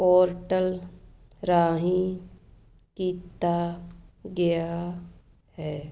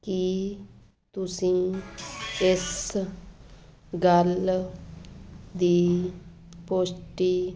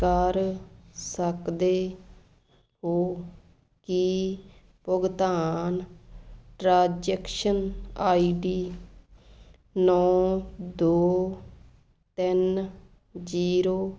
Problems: background sounds at intervals